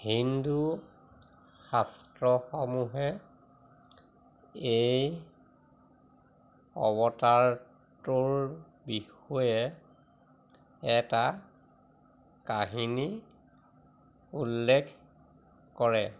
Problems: none marked